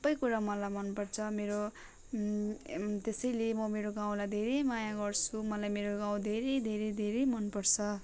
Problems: constant background noise